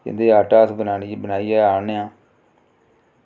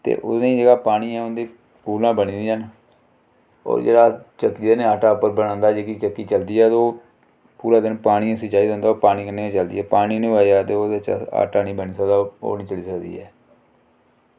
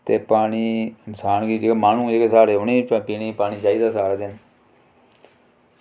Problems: low volume